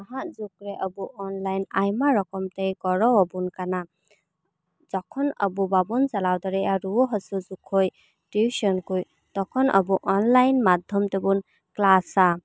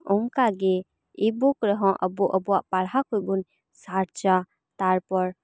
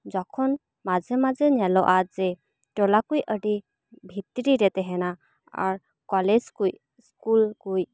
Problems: none marked